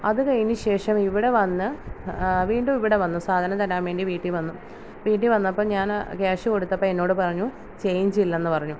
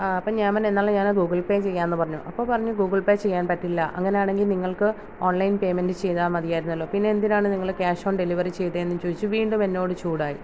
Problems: none marked